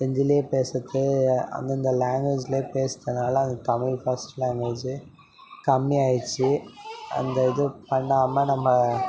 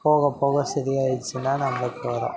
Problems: background sounds at intervals